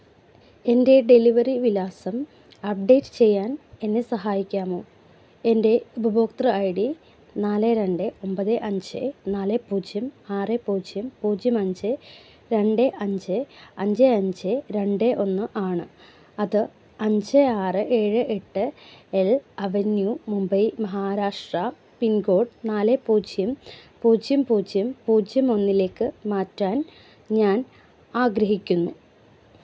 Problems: none marked